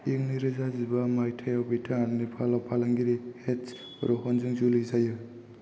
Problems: none marked